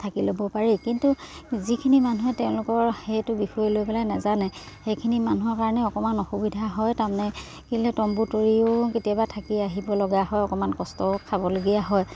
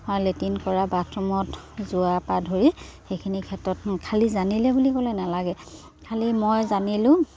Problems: none marked